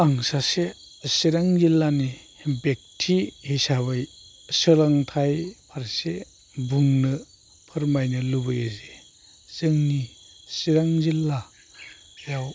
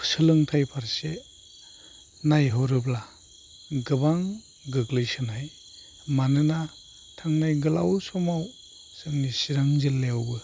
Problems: low volume